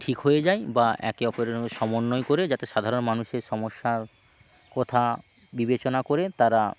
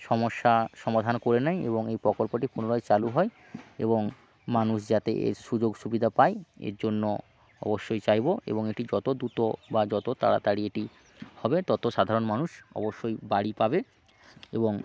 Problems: constant background noise